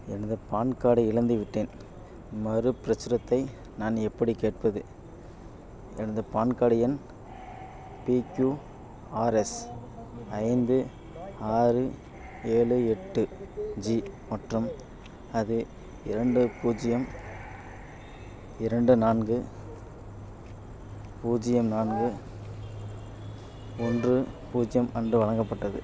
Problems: background sounds at intervals, background conversations at intervals